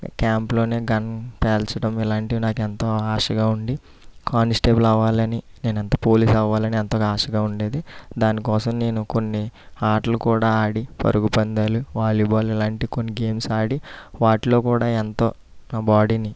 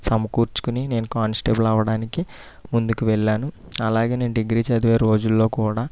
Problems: none marked